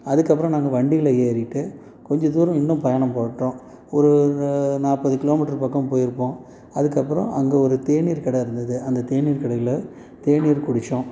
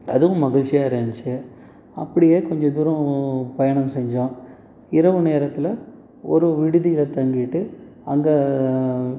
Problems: constant background noise